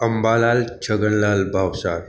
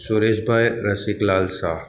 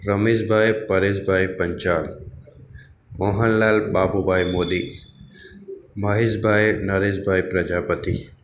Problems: none marked